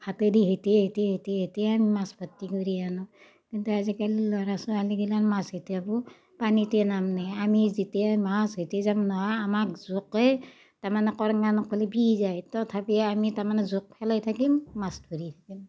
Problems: none marked